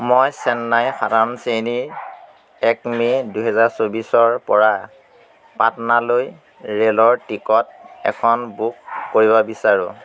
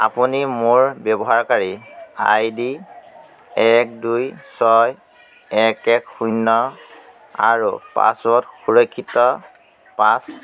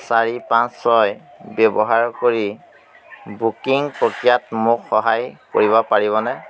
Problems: constant background noise